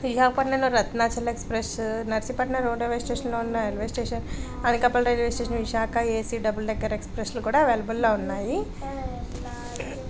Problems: background conversations at intervals